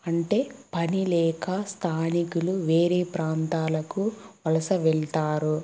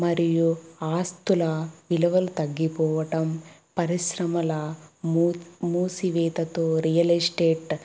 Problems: background sounds at intervals